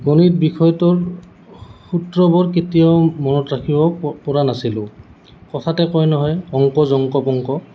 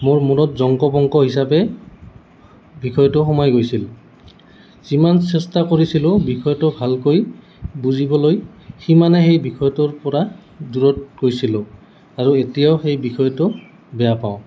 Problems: constant background noise